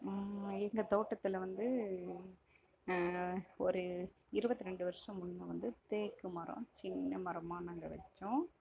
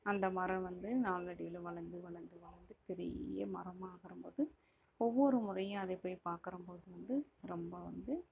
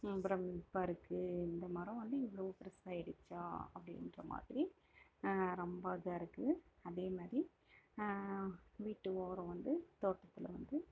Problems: background sounds at intervals, low volume